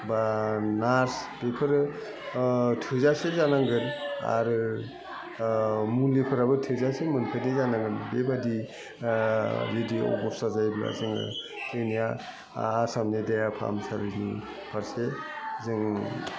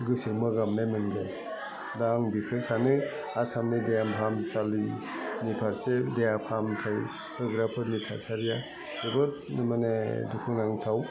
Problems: constant background noise, continuous background conversations, low volume